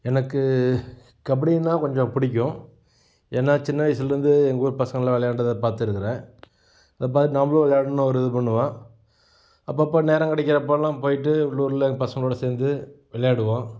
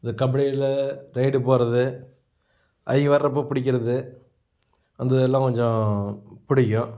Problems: background sounds at intervals